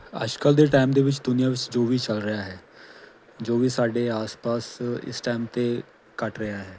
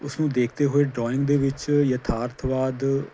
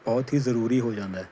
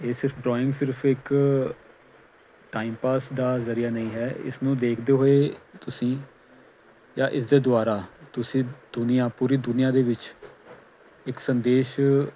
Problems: none marked